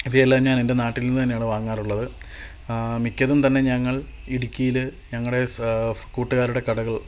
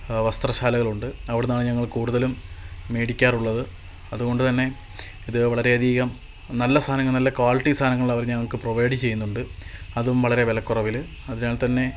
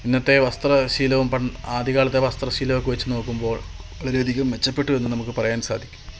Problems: constant background noise